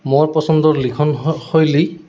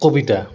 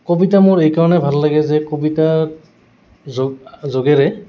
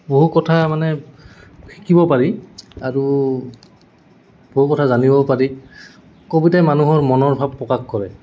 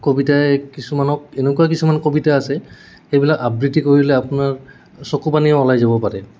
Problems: background sounds at intervals